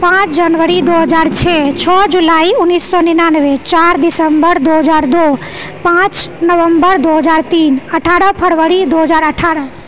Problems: none marked